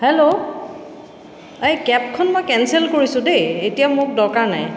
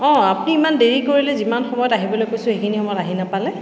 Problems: echo